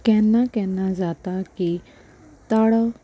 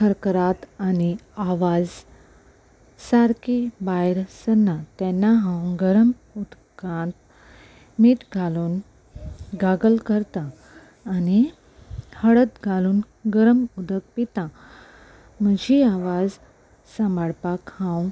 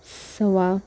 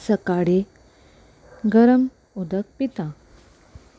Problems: none marked